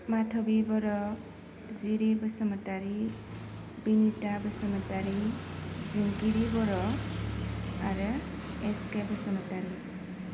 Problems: constant background noise